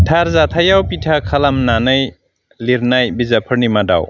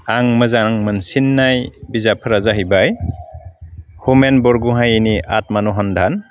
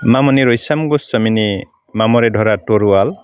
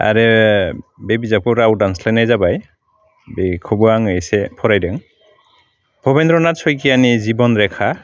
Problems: constant background noise